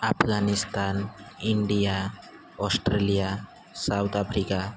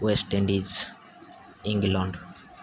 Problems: constant background noise